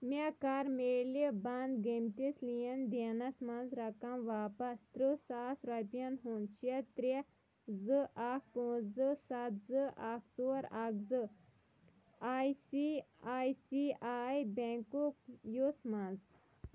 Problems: background sounds at intervals, low volume